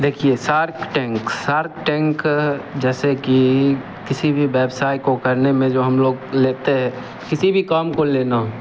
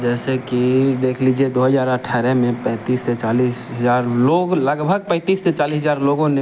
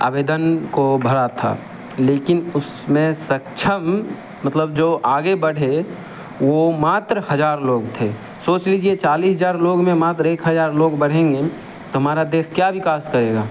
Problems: none marked